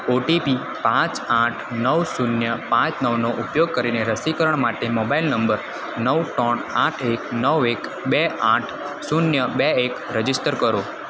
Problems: constant background noise